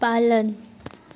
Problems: constant background noise